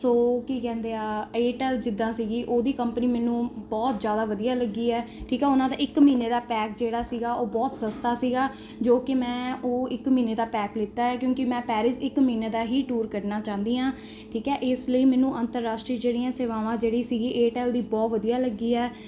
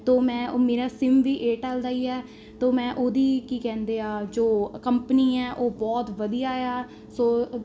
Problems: constant background noise